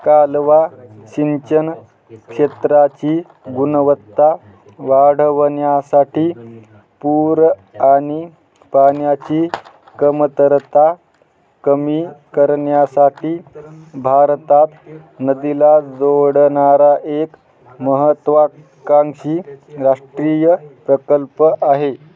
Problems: constant background noise, continuous background conversations